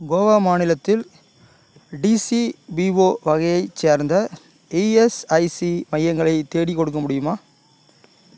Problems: none marked